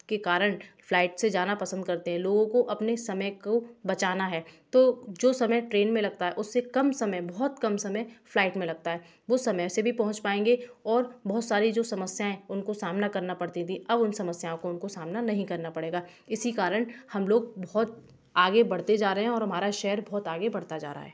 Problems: background sounds at intervals, background conversations at intervals